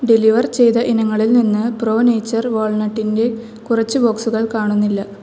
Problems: none marked